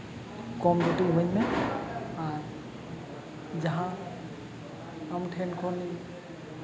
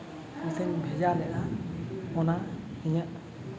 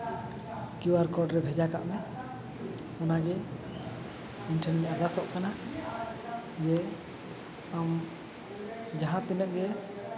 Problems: constant background noise, background conversations at intervals